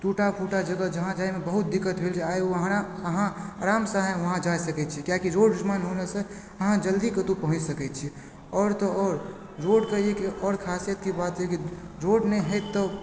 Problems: background sounds at intervals